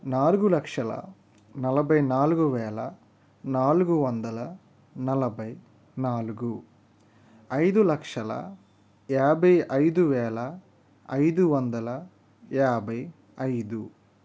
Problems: none marked